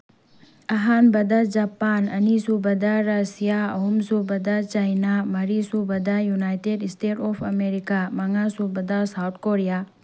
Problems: none marked